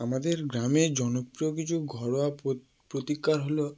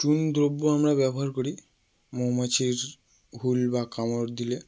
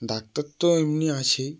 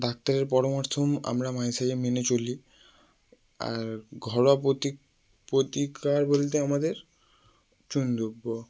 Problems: background sounds at intervals